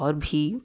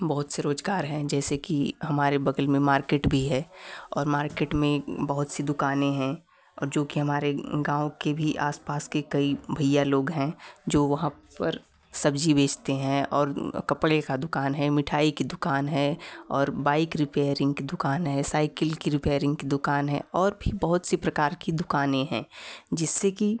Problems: background sounds at intervals